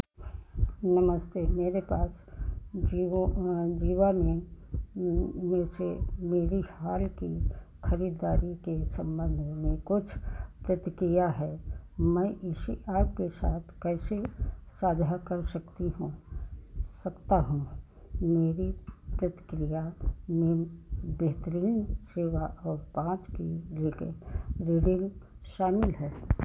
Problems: constant background noise